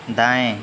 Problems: none marked